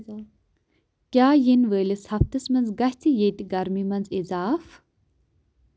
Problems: none marked